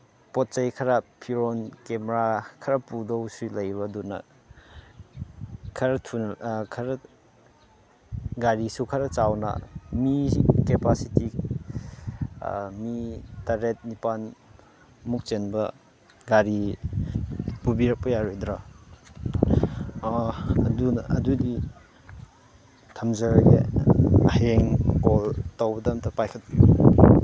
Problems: none marked